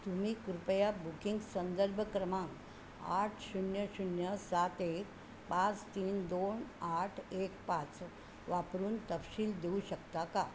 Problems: constant background noise